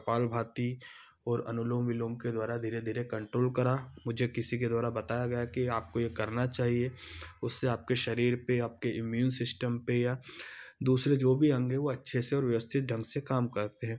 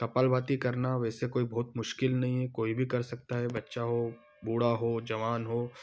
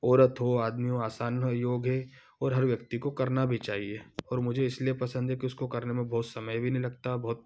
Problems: none marked